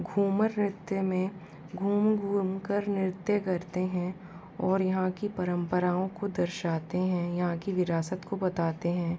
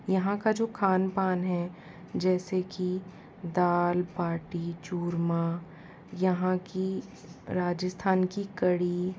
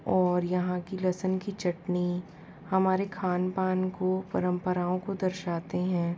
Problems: constant background noise